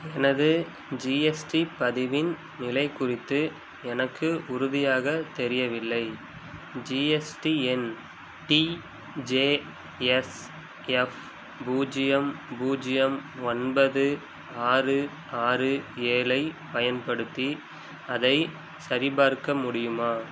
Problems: none marked